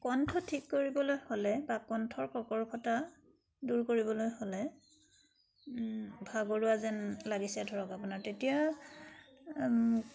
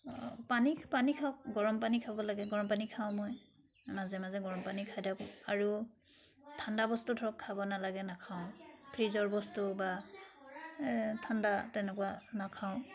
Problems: constant background noise